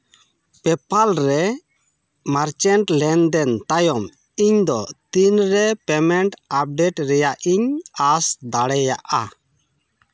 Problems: none marked